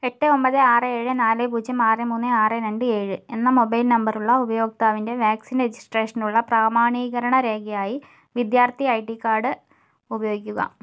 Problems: none marked